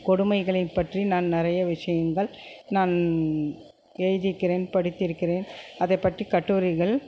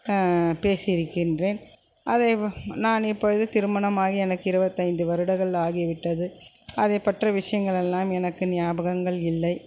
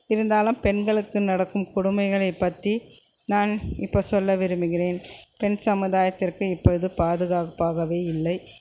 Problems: constant background noise